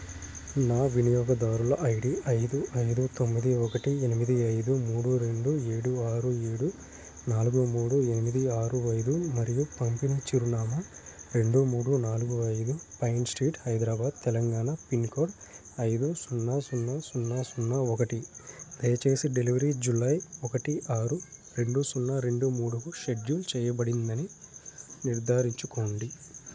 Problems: none marked